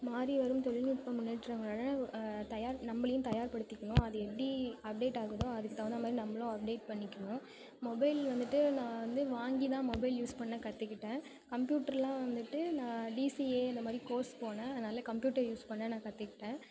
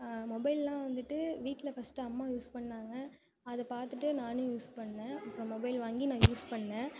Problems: background sounds at intervals, continuous background conversations